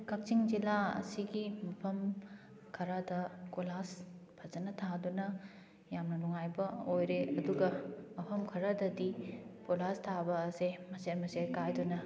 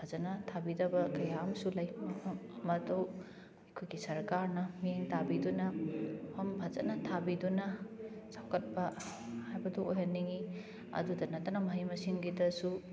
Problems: background sounds at intervals, background conversations at intervals